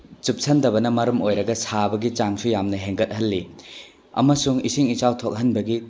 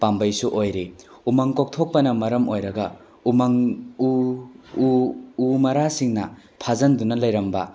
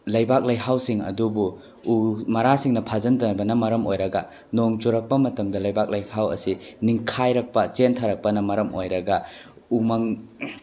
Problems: none marked